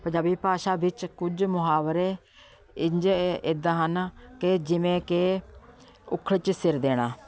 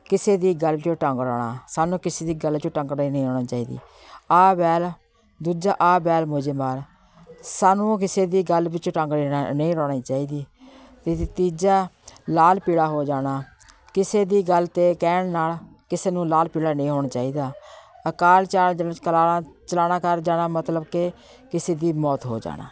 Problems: constant background noise